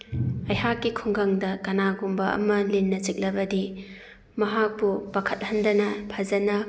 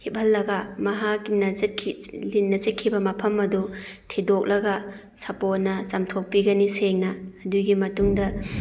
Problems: none marked